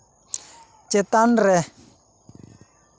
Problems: constant background noise, background conversations at intervals